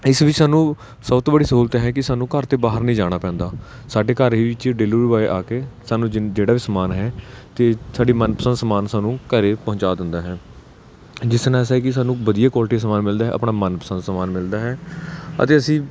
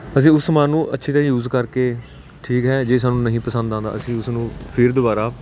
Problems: none marked